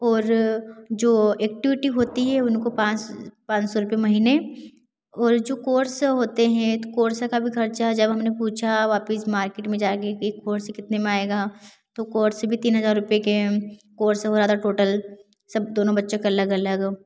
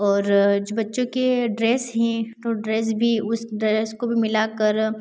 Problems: none marked